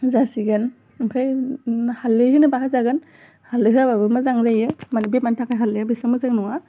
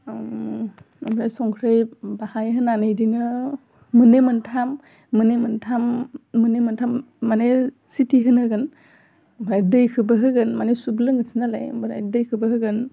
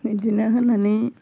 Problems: low volume